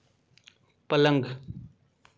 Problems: none marked